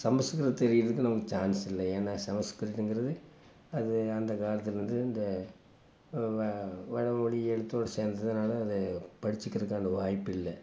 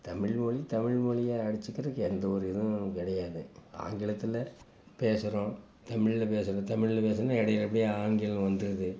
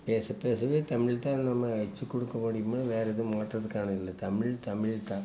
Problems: constant background noise